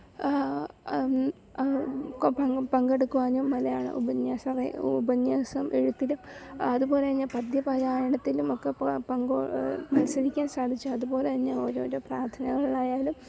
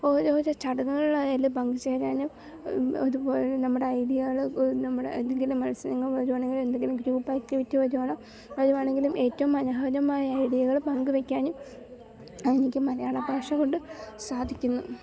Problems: low volume